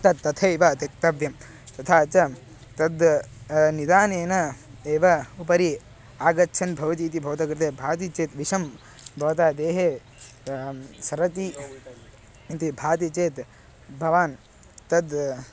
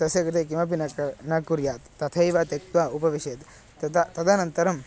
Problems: constant background noise, background conversations at intervals